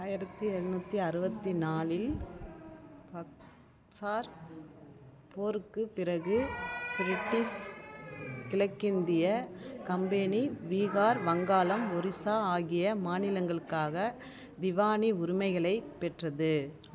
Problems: background conversations at intervals